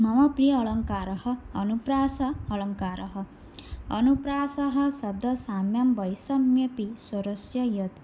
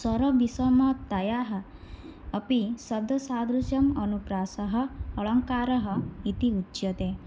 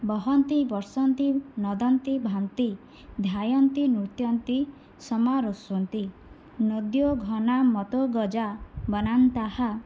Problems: none marked